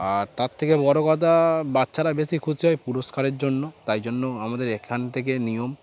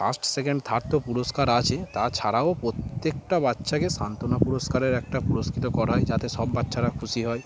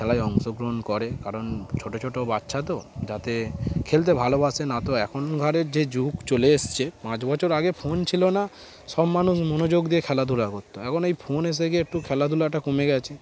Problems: constant background noise